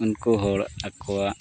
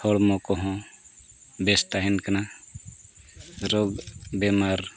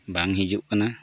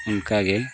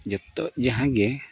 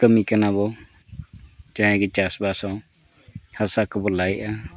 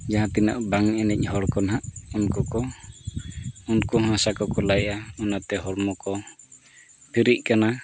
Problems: constant background noise